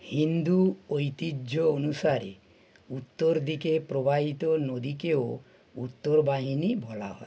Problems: background sounds at intervals